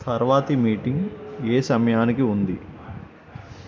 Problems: constant background noise